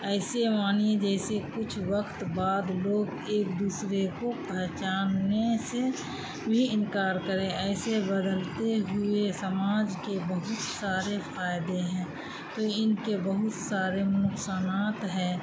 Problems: constant background noise